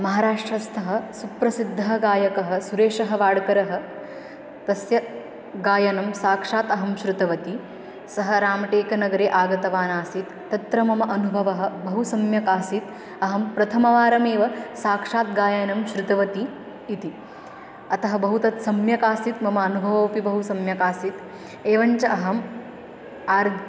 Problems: constant background noise, continuous background conversations